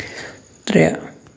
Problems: constant background noise